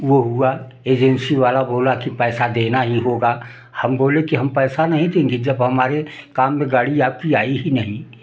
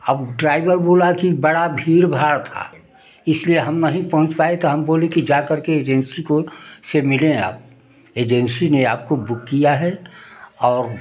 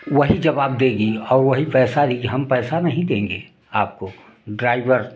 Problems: background sounds at intervals